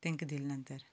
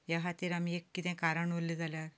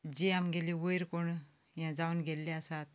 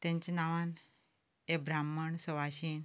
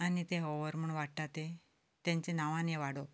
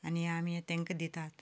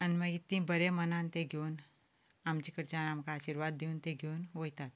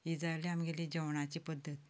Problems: none marked